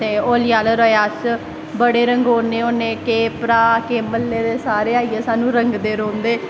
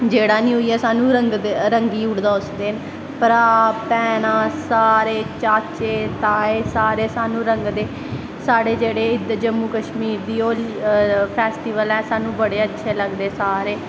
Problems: constant background noise